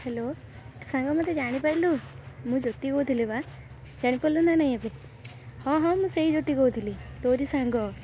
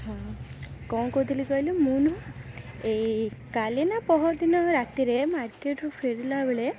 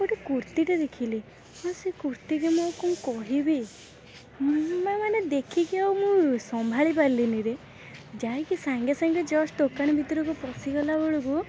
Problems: constant background noise